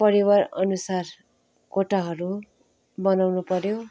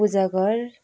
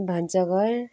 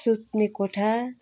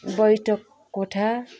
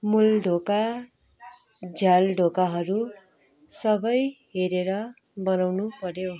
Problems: continuous background conversations